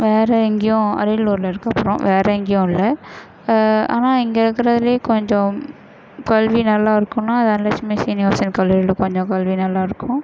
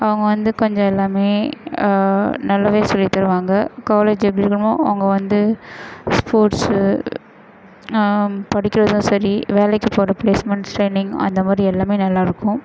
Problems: none marked